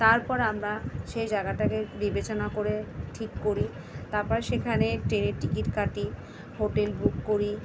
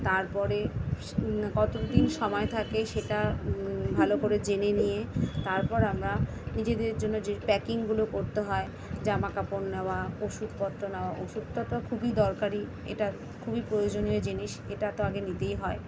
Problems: constant background noise, continuous background conversations